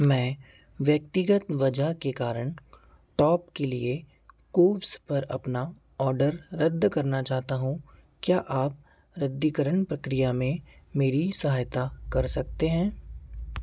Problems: none marked